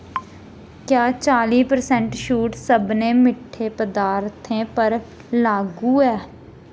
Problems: constant background noise